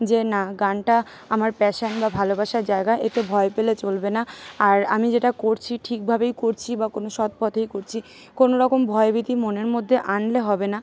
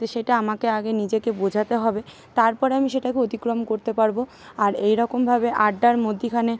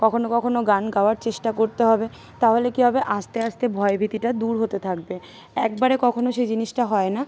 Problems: none marked